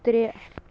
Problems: constant background noise, low volume